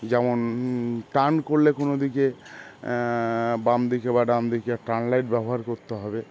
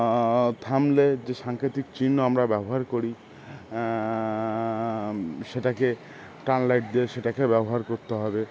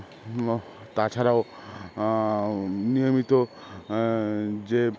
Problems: constant background noise, background conversations at intervals